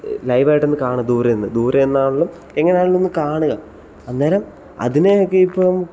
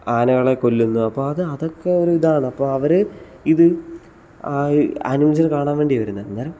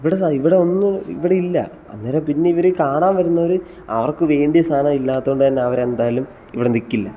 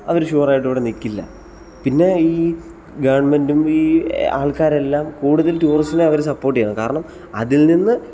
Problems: background sounds at intervals